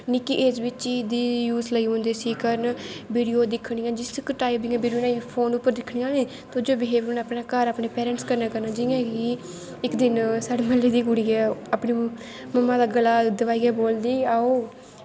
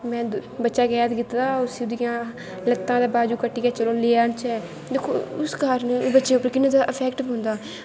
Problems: constant background noise